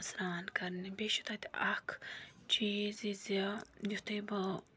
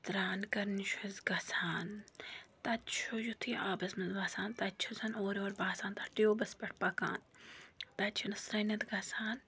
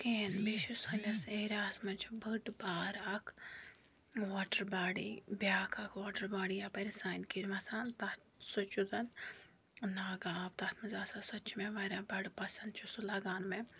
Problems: none marked